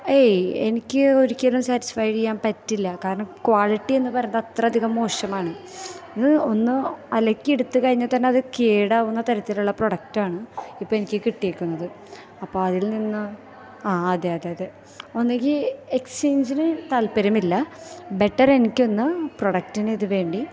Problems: none marked